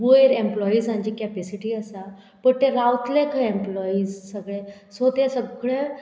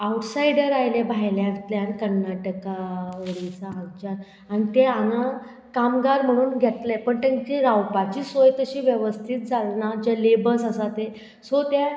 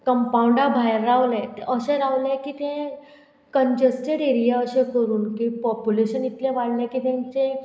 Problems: background sounds at intervals